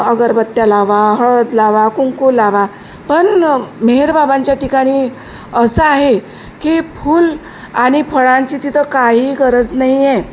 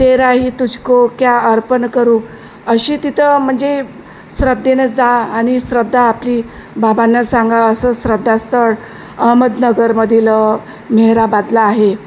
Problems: constant background noise